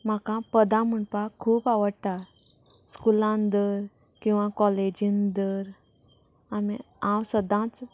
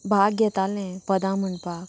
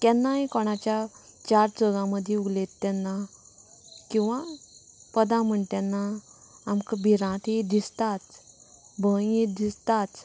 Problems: background conversations at intervals